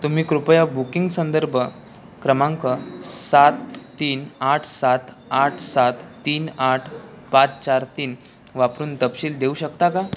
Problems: constant background noise